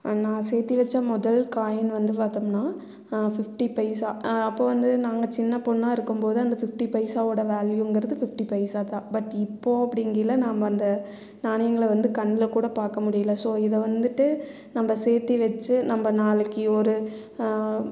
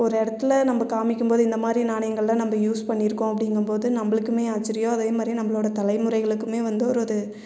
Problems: none marked